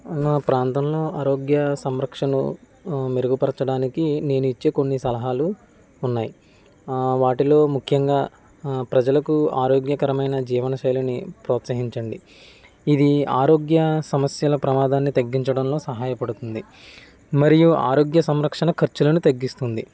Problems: background conversations at intervals